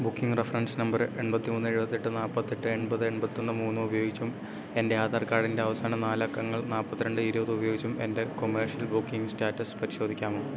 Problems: constant background noise